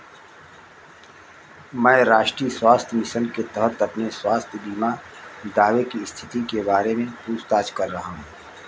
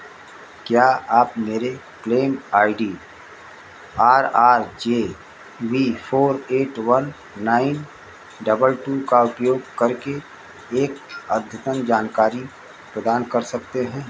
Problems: constant background noise